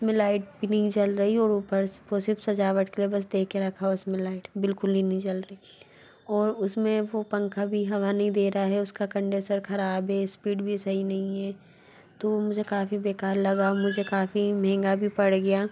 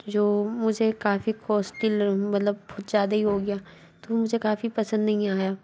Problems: constant background noise, background conversations at intervals